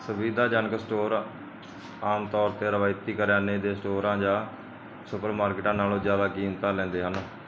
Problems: none marked